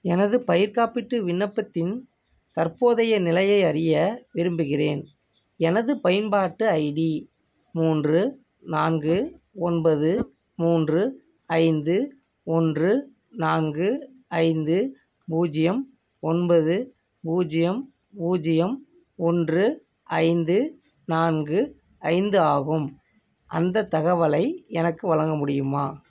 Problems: none marked